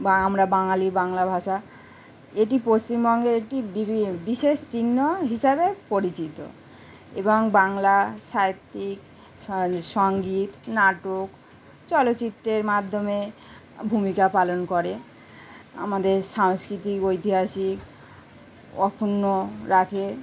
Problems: none marked